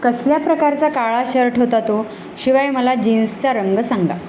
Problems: constant background noise